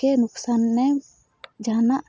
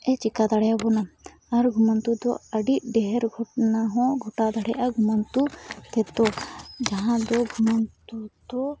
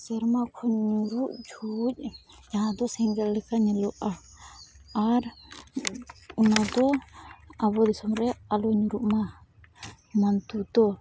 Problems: none marked